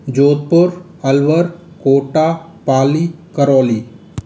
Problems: constant background noise